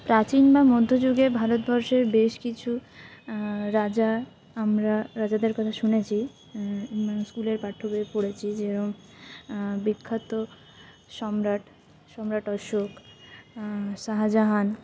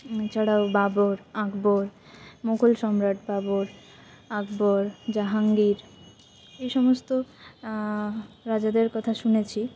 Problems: background sounds at intervals